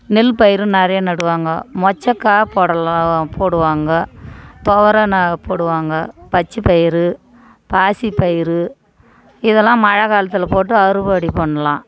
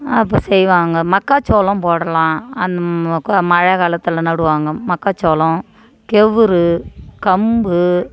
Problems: none marked